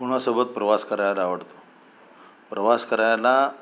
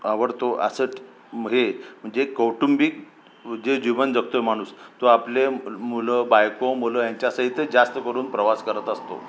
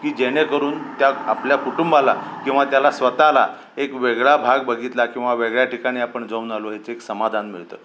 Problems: constant background noise